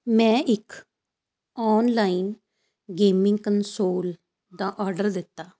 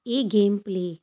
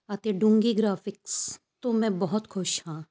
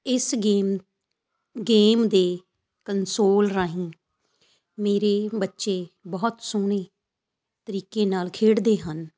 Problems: constant background noise